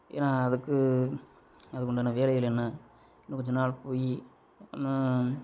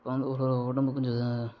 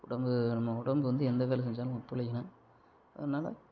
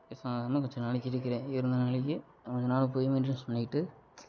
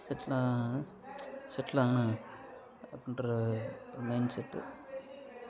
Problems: none marked